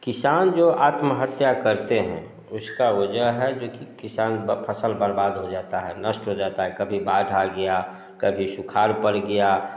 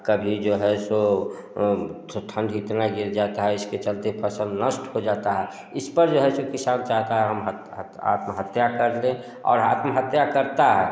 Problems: none marked